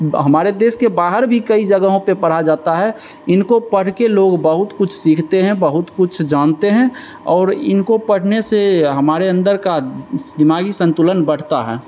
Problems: none marked